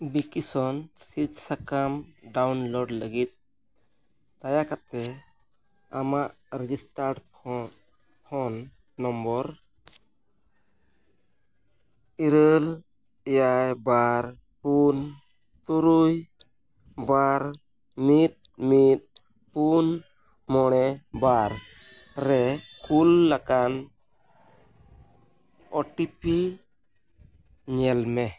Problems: background sounds at intervals